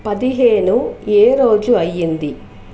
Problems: constant background noise